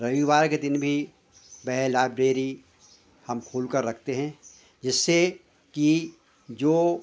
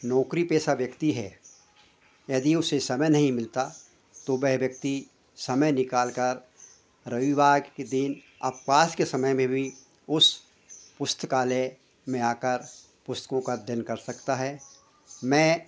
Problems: none marked